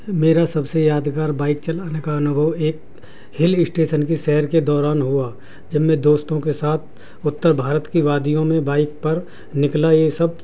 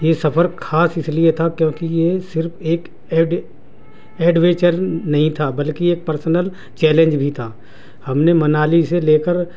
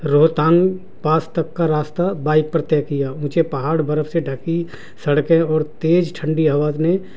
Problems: constant background noise